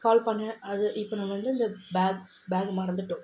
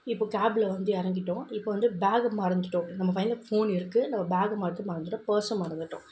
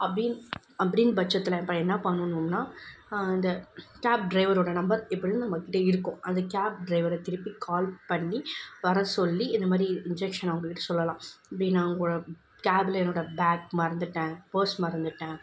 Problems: background sounds at intervals